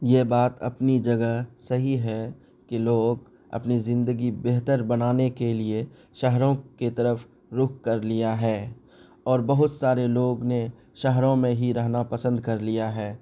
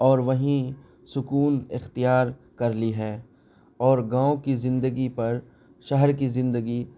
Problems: none marked